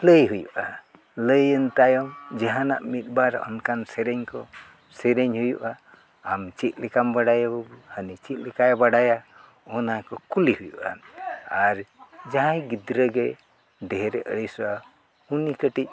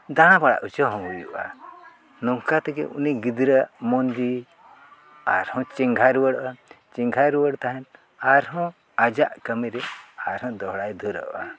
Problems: constant background noise, background conversations at intervals